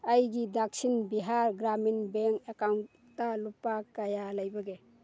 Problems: none marked